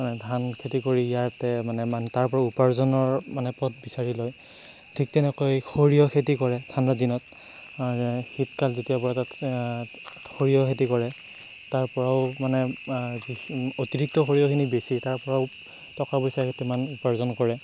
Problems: constant background noise